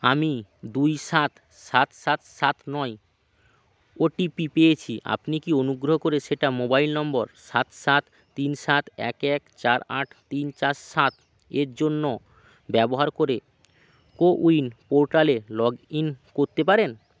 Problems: background sounds at intervals